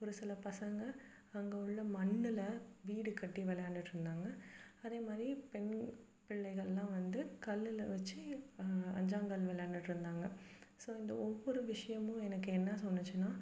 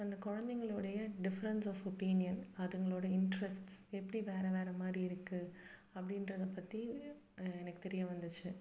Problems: background sounds at intervals